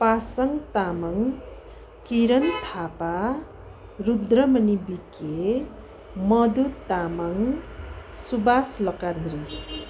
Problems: constant background noise